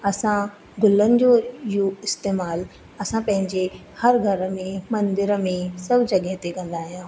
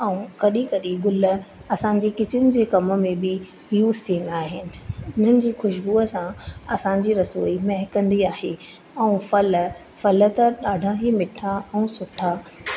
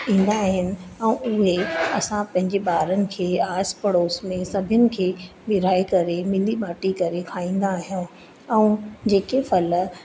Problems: constant background noise